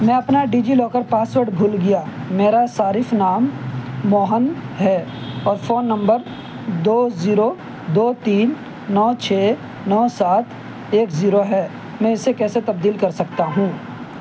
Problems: constant background noise